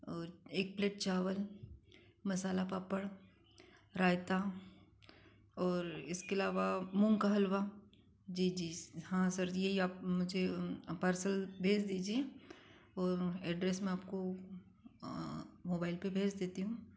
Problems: constant background noise